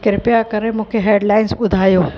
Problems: constant background noise, echo